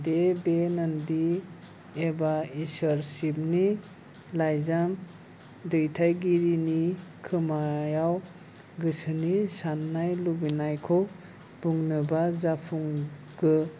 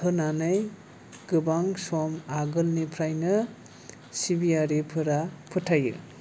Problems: none marked